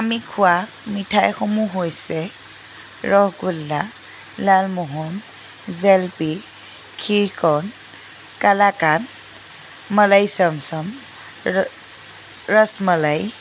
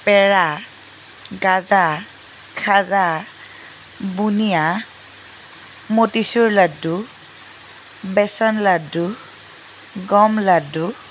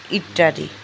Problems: constant background noise